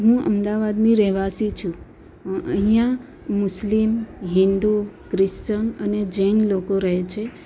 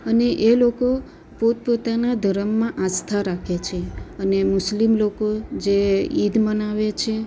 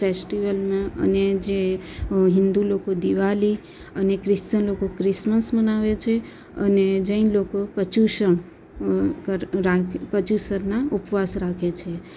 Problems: constant background noise